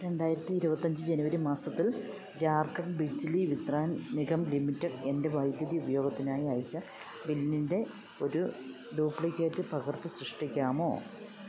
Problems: background sounds at intervals